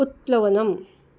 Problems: none marked